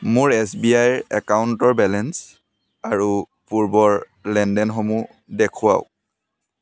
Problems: background sounds at intervals, background conversations at intervals